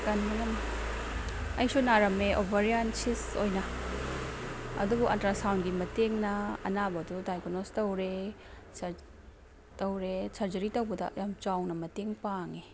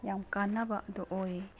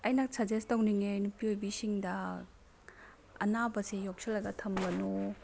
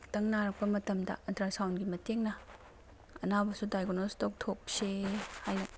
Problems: background sounds at intervals